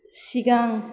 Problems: none marked